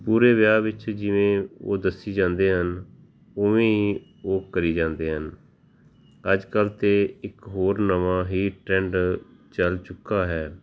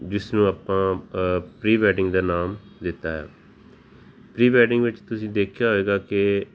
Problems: background sounds at intervals